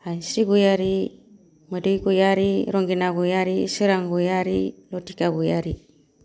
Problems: none marked